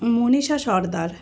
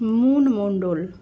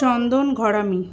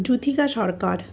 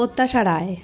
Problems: constant background noise, background conversations at intervals